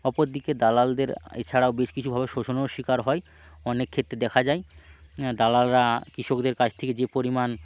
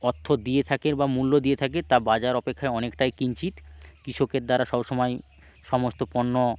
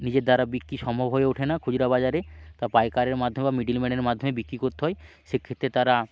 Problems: constant background noise